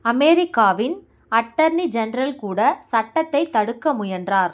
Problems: none marked